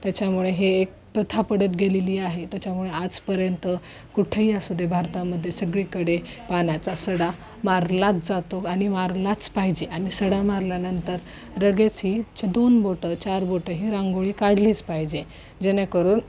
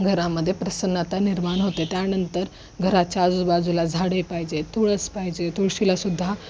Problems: constant background noise